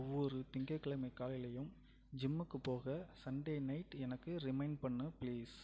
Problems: low volume